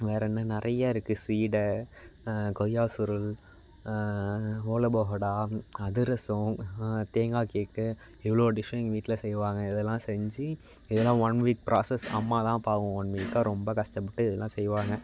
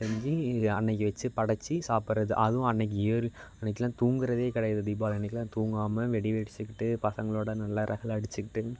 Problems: background sounds at intervals